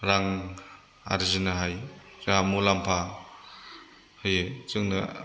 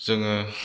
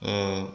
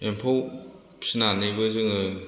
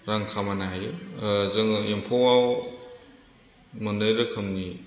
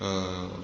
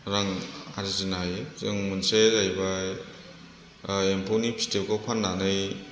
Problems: background sounds at intervals